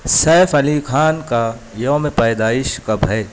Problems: none marked